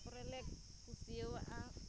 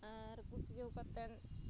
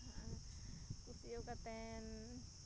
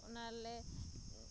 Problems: none marked